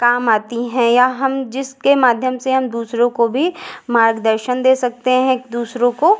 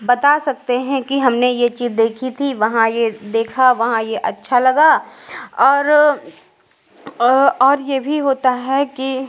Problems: echo